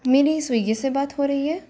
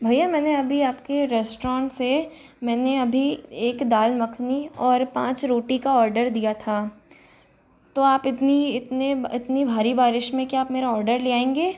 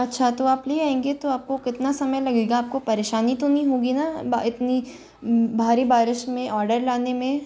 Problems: none marked